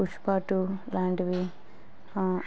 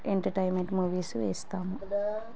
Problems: background sounds at intervals, background conversations at intervals